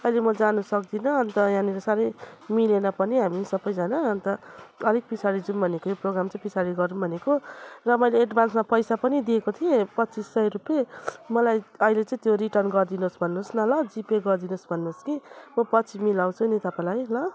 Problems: none marked